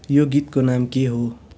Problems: none marked